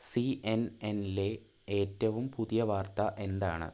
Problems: low volume